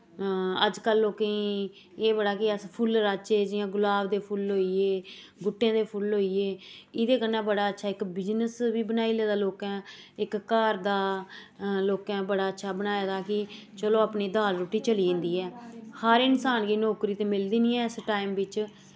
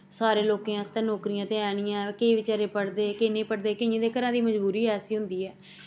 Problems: background sounds at intervals